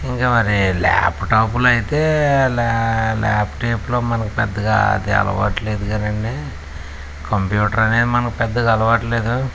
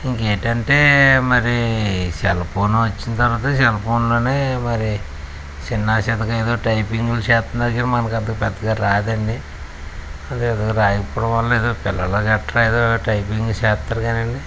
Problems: constant background noise